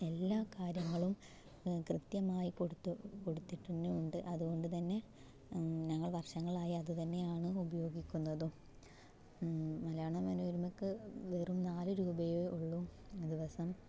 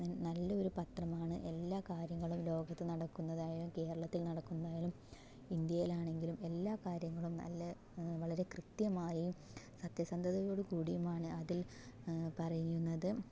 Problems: background sounds at intervals, low volume